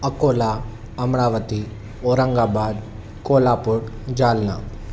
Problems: none marked